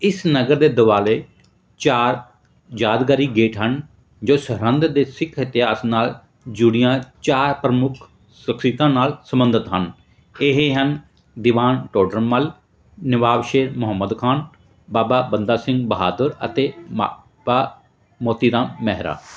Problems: background sounds at intervals